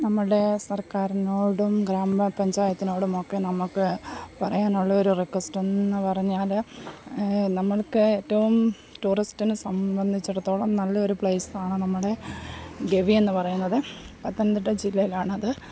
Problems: background sounds at intervals, low volume